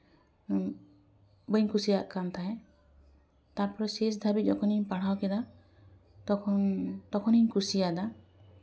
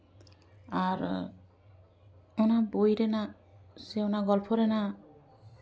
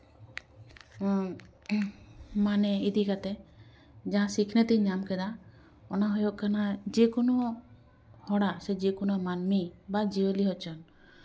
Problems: continuous background conversations